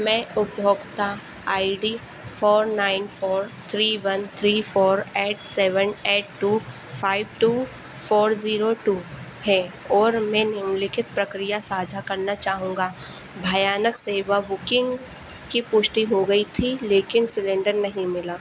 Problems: constant background noise